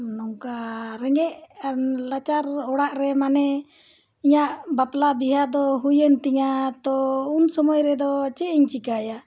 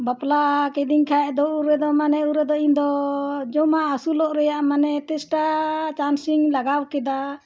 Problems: none marked